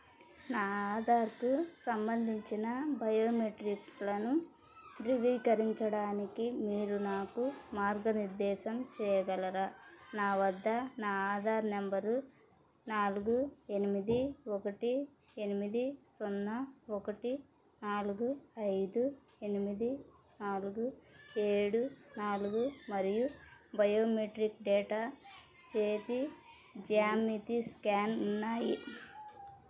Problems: background sounds at intervals, background conversations at intervals